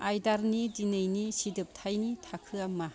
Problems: background sounds at intervals